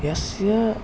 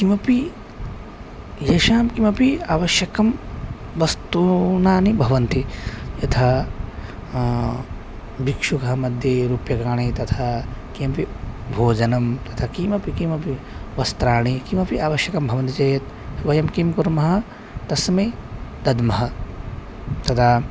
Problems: constant background noise